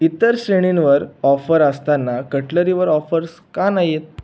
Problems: background sounds at intervals